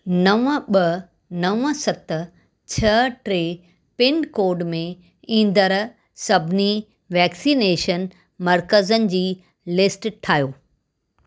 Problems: none marked